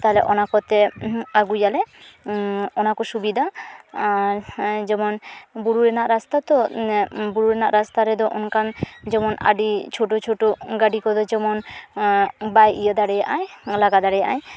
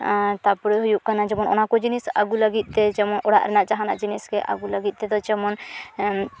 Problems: none marked